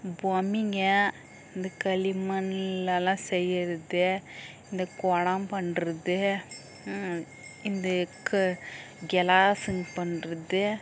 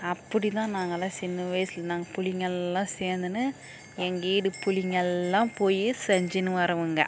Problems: background sounds at intervals